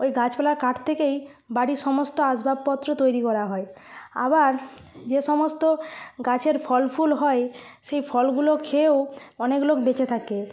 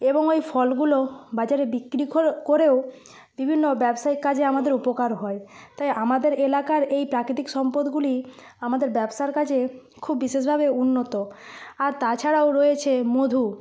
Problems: none marked